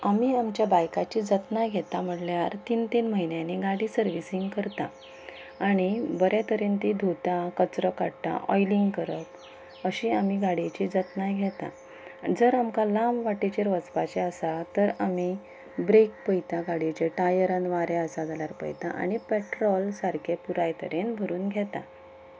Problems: background sounds at intervals